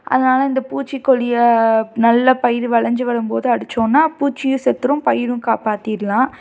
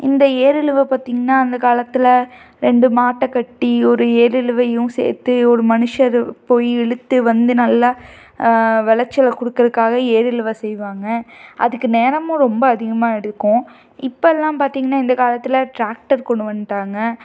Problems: none marked